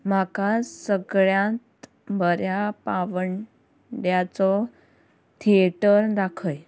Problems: background sounds at intervals